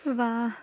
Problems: none marked